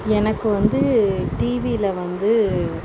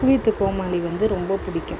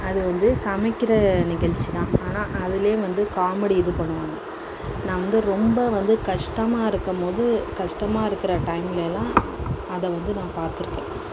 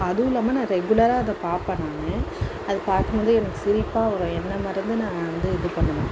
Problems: constant background noise